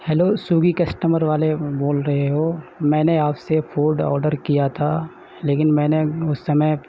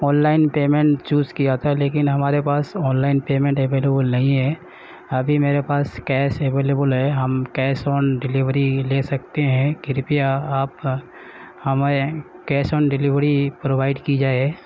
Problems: none marked